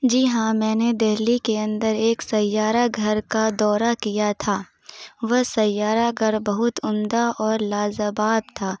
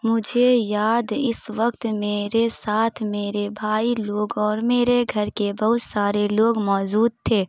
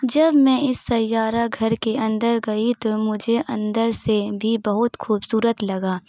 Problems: none marked